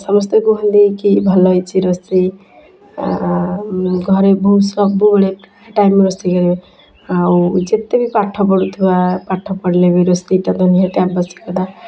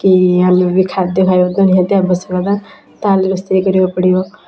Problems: constant background noise, continuous background conversations